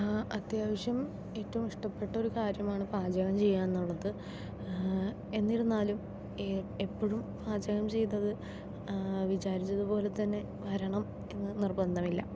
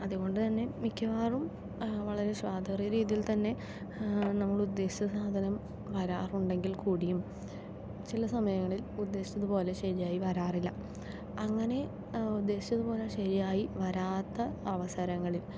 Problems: low volume